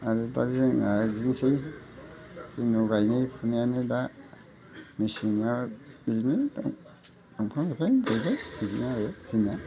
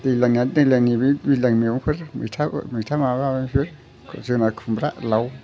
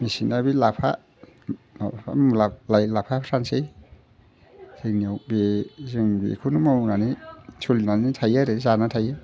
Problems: constant background noise